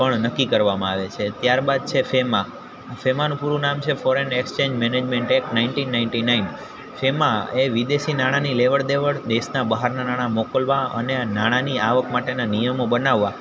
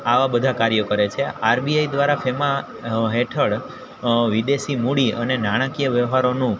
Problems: constant background noise